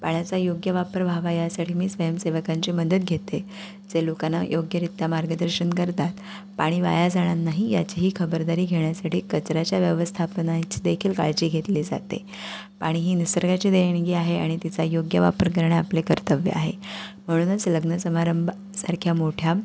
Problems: none marked